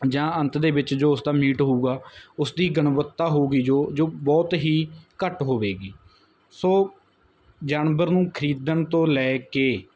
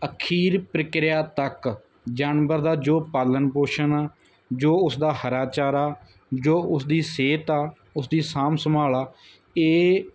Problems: none marked